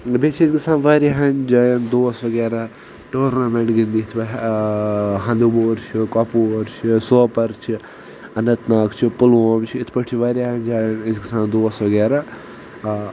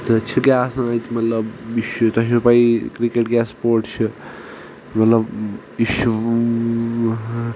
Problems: constant background noise